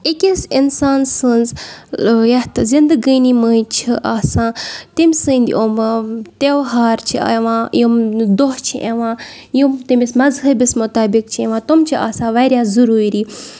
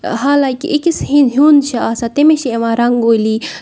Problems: none marked